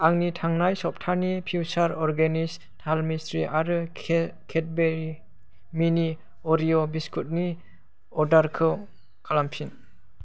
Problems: none marked